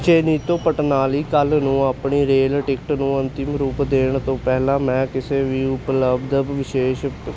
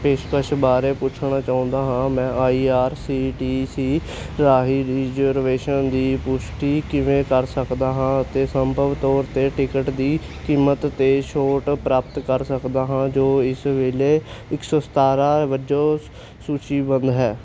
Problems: constant background noise